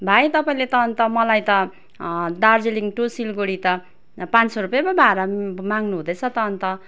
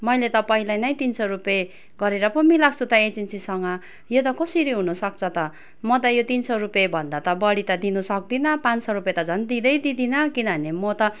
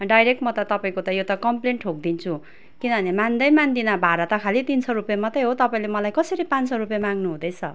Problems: background sounds at intervals